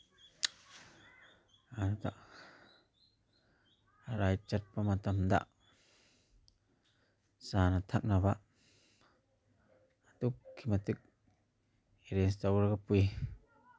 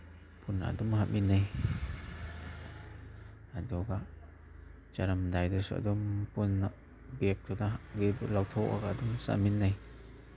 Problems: background sounds at intervals